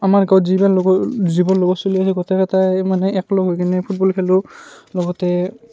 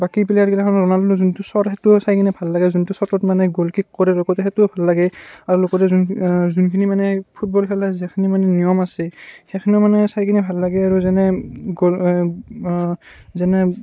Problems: background sounds at intervals, background conversations at intervals